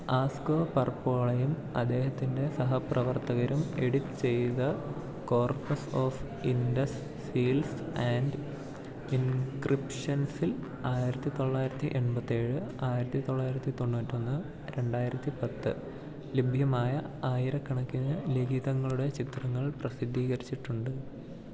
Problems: low volume